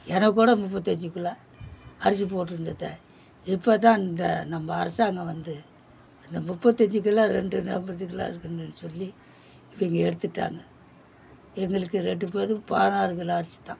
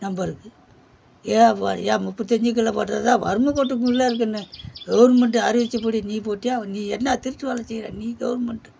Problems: background sounds at intervals